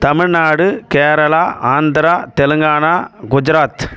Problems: background sounds at intervals